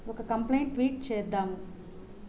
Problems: constant background noise